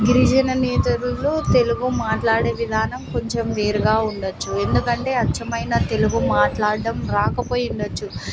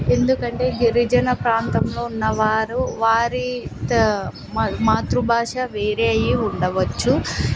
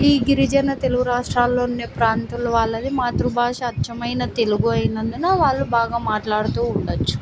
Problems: constant background noise